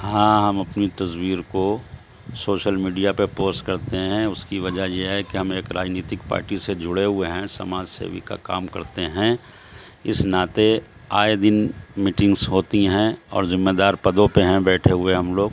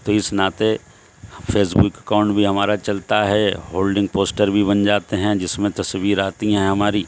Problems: constant background noise